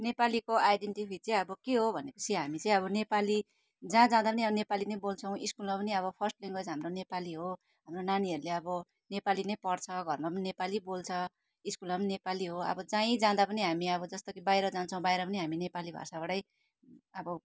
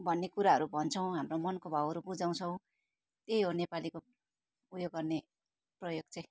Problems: none marked